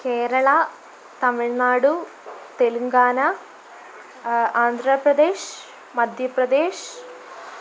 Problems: constant background noise